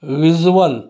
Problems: none marked